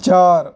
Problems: none marked